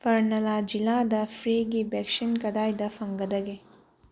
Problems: low volume